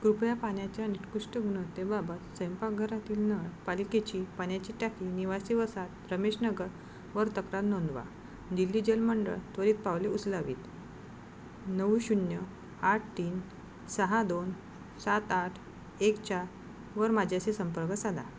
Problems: constant background noise